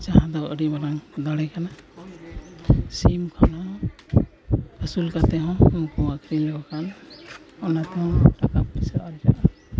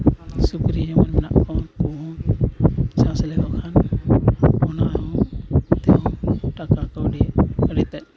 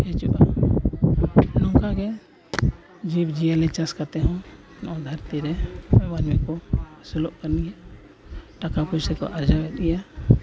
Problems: constant background noise, continuous background conversations, low volume